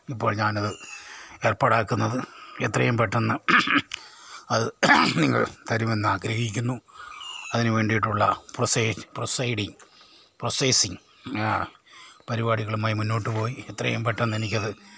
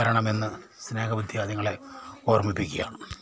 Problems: low volume